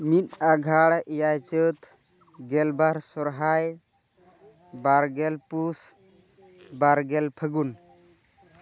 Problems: constant background noise, background conversations at intervals